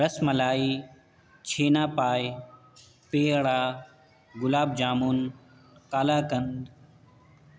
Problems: constant background noise